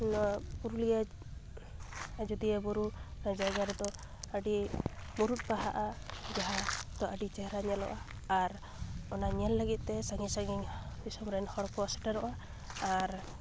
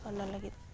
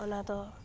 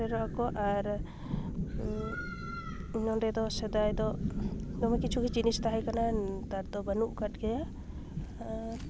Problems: constant background noise